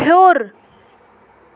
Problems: background sounds at intervals